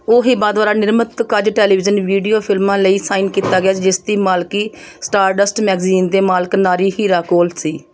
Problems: none marked